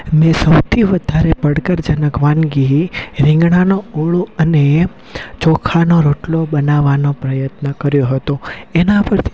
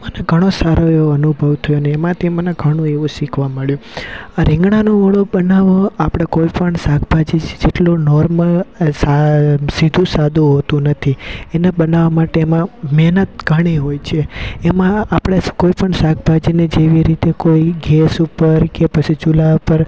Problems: none marked